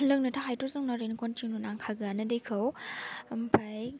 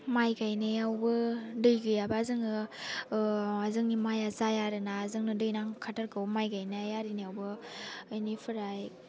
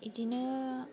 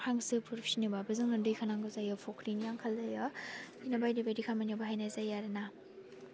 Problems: none marked